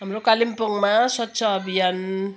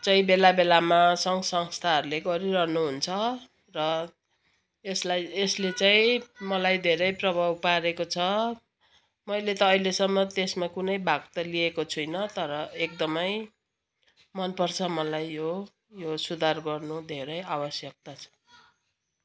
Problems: continuous background conversations